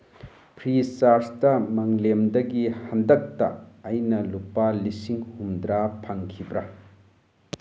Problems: none marked